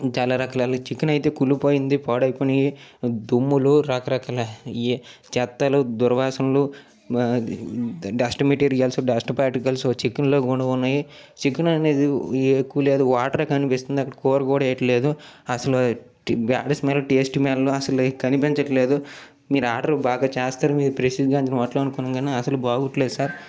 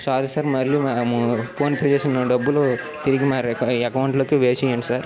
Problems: background sounds at intervals